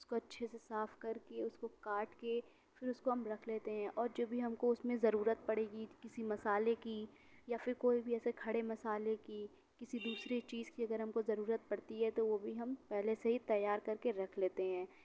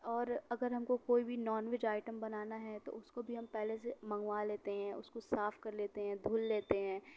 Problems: none marked